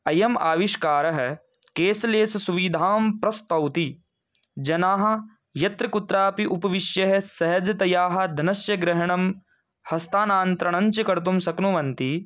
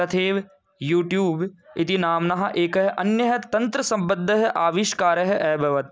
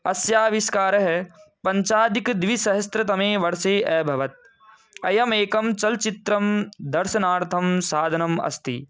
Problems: background sounds at intervals